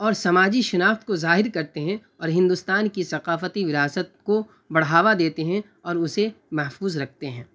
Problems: constant background noise